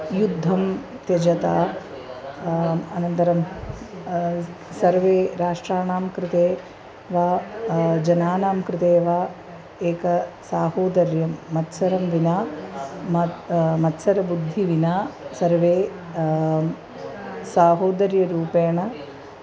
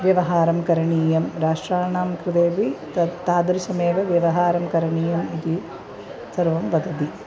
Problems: constant background noise, continuous background conversations